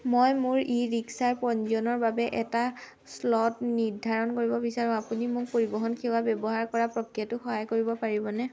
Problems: constant background noise